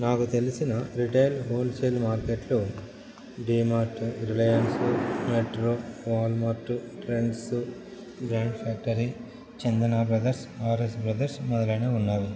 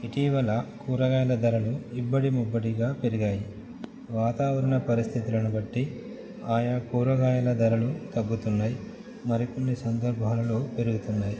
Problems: constant background noise